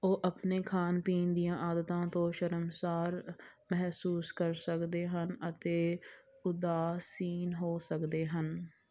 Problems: none marked